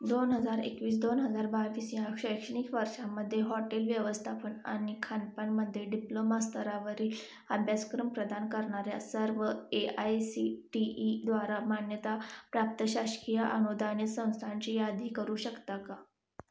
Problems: none marked